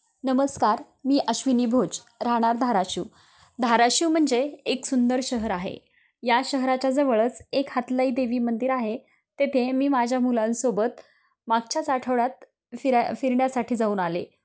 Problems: constant background noise, background conversations at intervals